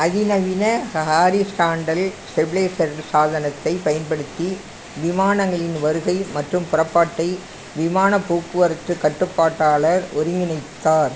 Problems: constant background noise